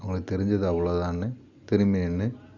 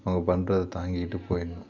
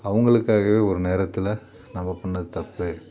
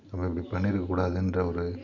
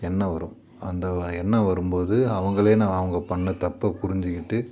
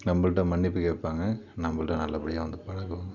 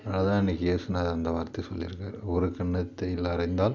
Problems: none marked